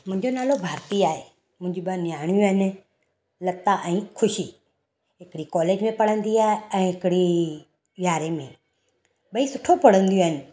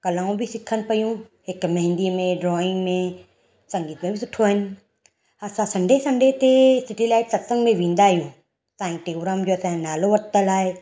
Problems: none marked